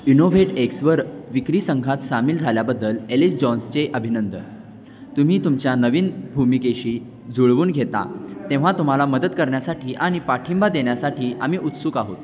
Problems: constant background noise